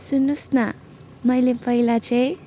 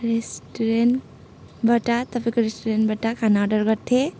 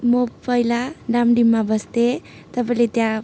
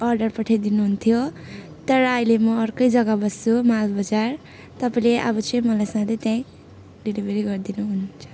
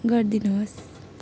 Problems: constant background noise, continuous background conversations